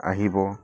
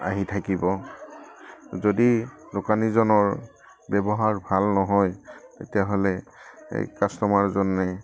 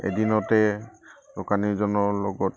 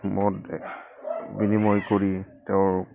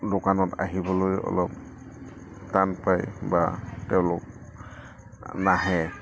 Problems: background sounds at intervals